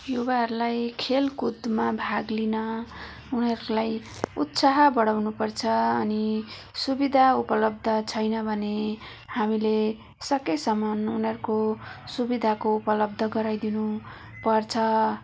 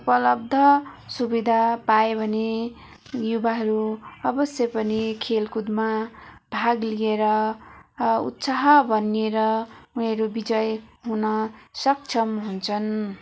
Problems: background sounds at intervals